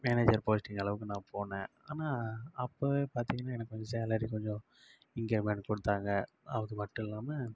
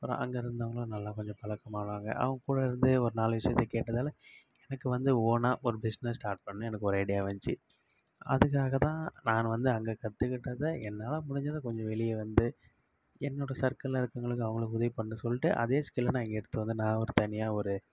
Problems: none marked